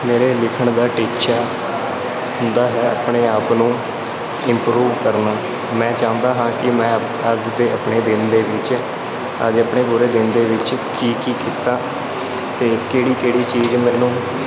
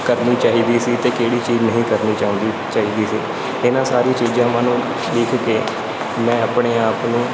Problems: constant background noise